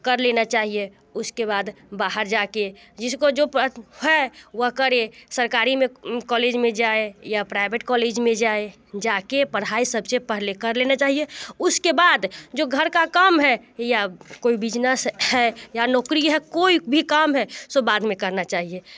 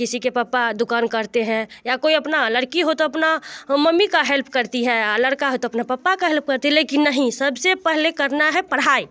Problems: constant background noise, continuous background conversations